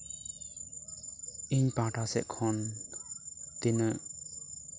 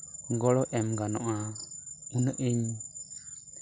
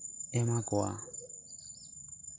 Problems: constant background noise, background conversations at intervals